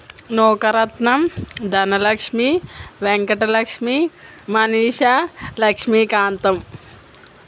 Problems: constant background noise